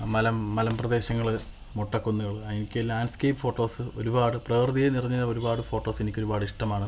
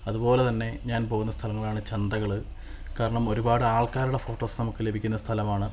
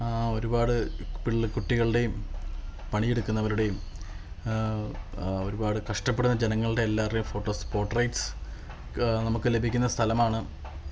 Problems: background sounds at intervals